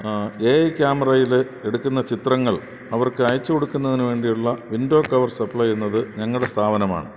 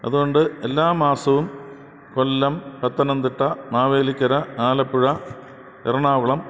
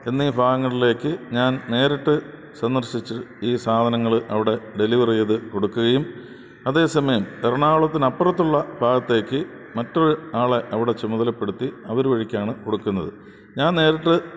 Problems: constant background noise